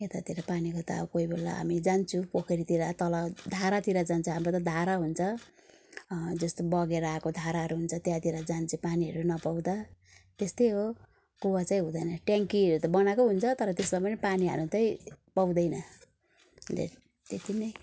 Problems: background sounds at intervals